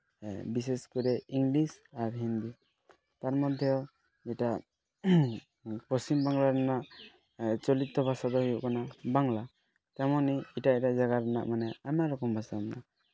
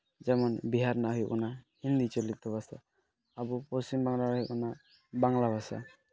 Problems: background sounds at intervals